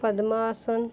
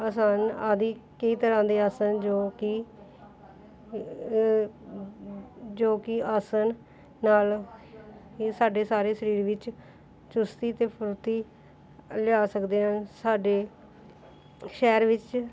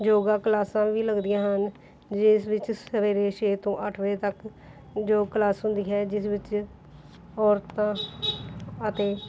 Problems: background sounds at intervals